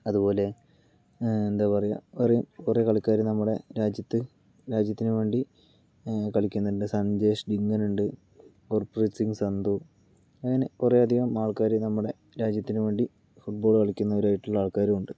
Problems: low volume